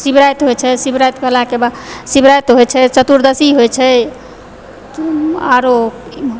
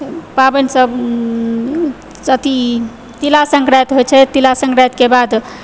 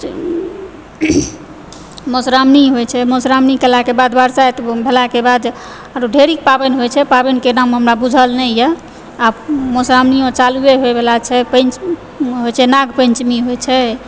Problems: background sounds at intervals